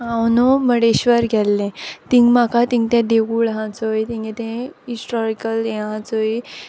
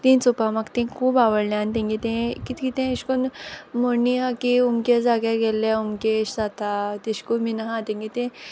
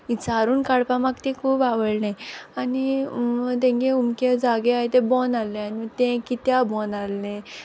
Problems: background sounds at intervals